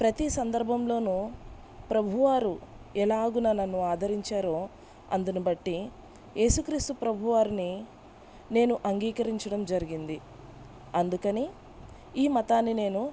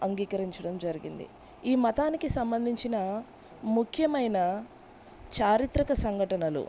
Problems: background sounds at intervals